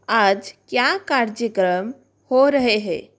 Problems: constant background noise